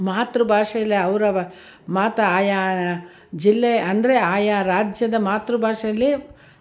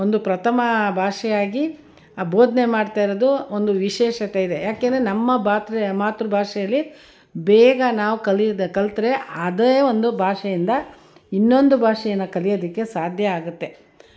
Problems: none marked